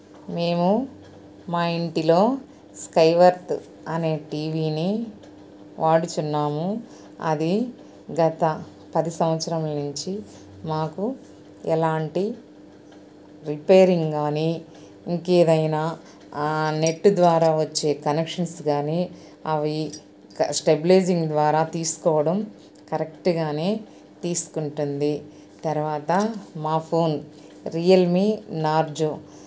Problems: none marked